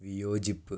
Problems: none marked